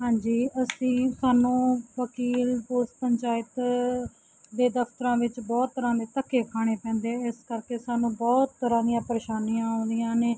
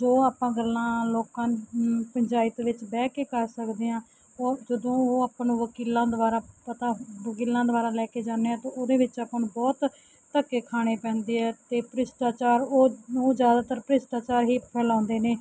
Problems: background sounds at intervals